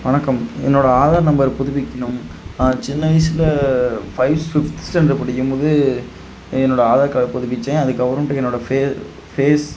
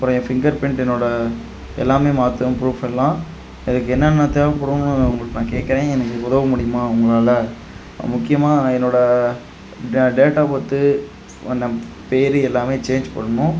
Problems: constant background noise